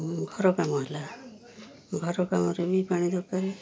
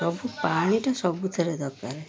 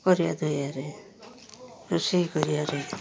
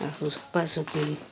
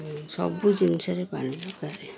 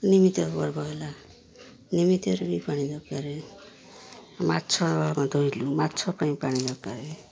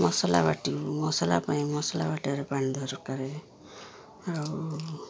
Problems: low volume